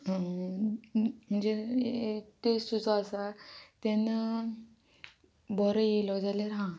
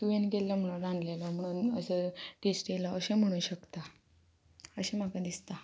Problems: constant background noise